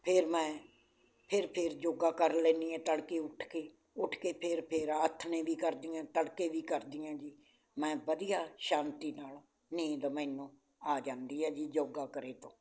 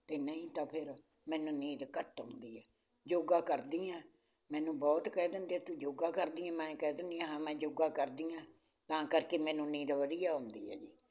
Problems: none marked